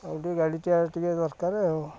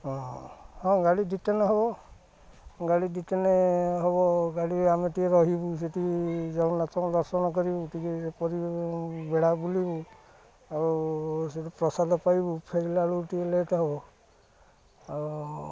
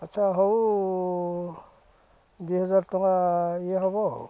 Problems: low volume